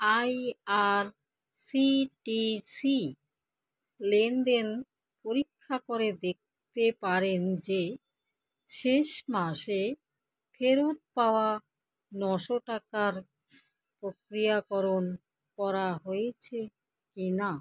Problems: none marked